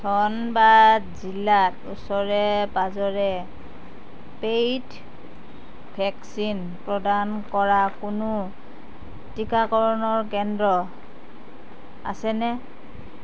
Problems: constant background noise